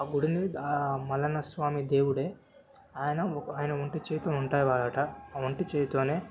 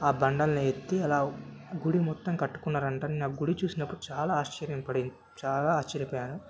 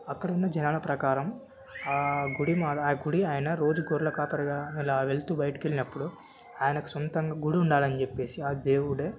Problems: background sounds at intervals